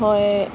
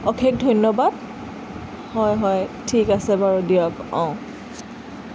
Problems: constant background noise